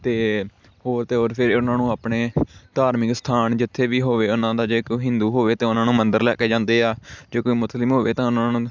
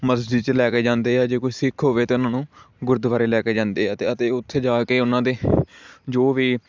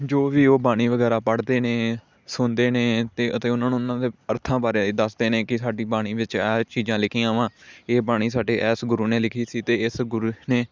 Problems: constant background noise